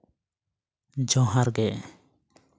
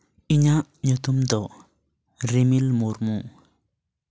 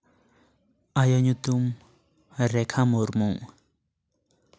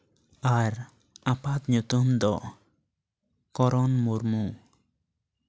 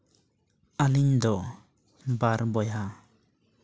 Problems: none marked